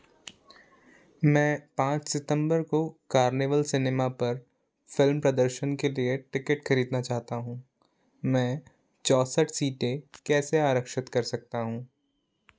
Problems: none marked